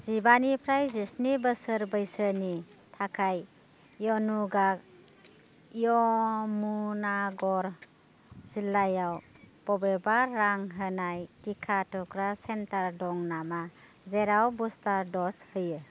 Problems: constant background noise